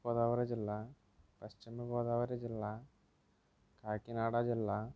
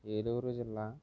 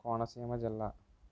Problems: low volume